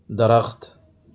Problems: constant background noise